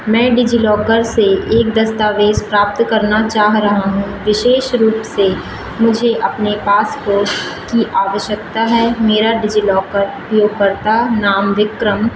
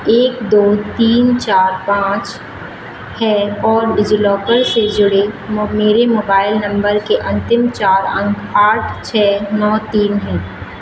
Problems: background sounds at intervals